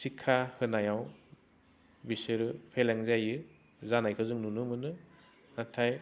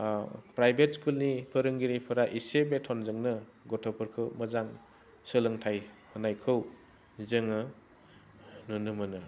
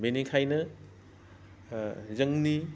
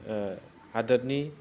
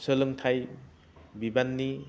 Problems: none marked